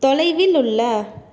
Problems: none marked